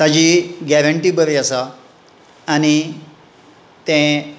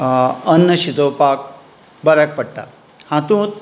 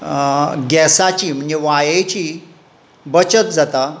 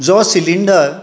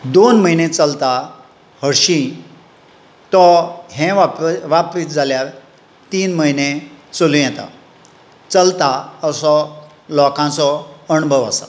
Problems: none marked